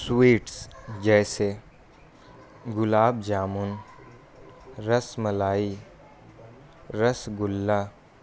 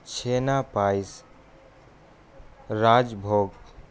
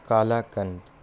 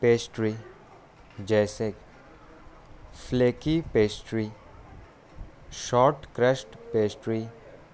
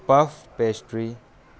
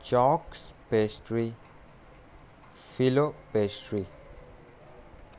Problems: constant background noise